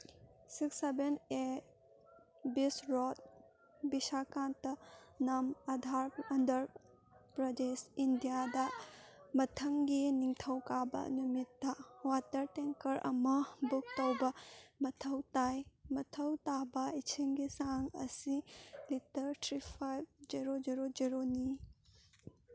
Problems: background sounds at intervals, background conversations at intervals